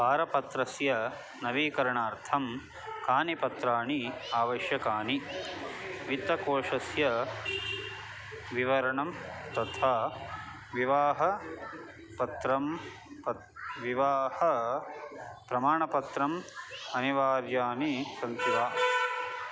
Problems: background sounds at intervals